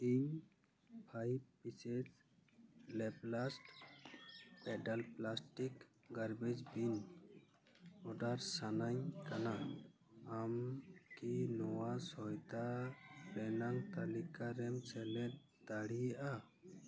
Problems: none marked